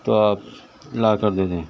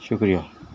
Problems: constant background noise